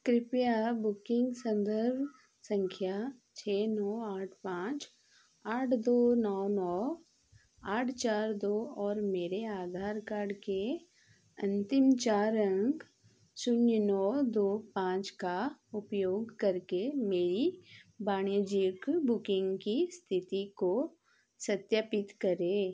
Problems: none marked